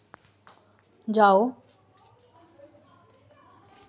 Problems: constant background noise